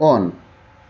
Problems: constant background noise